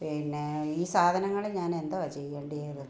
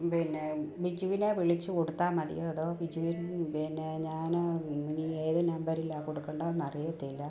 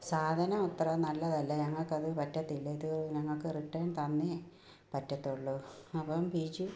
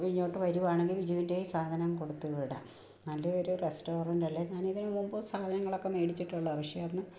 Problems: low volume